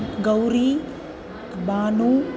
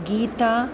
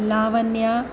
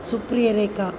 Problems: constant background noise